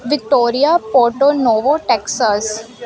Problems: background sounds at intervals